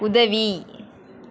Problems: continuous background conversations